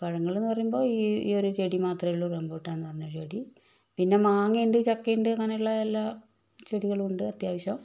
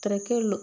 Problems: constant background noise, low volume